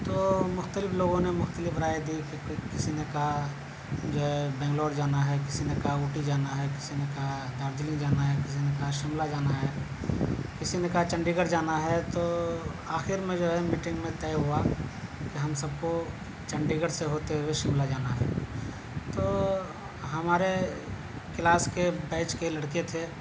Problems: none marked